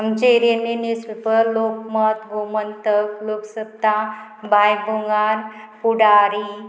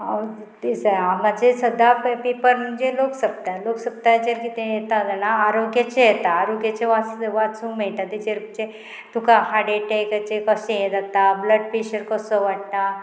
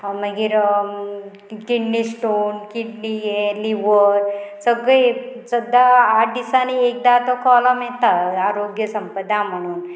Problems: constant background noise